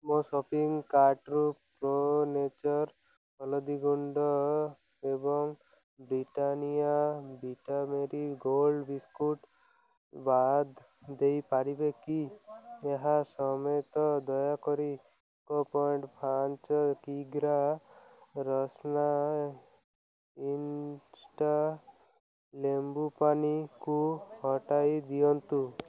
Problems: constant background noise